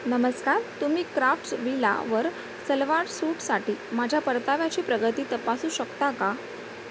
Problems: constant background noise